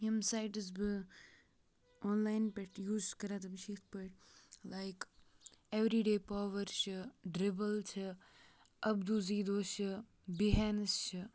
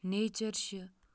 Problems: background sounds at intervals, low volume